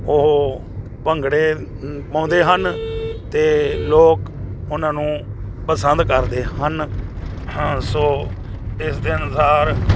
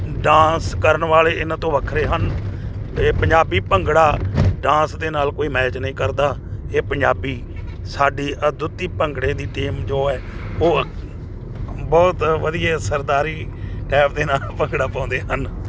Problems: none marked